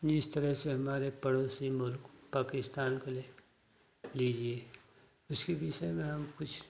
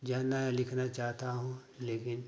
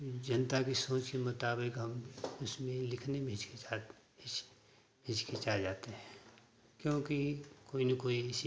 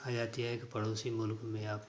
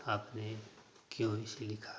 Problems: none marked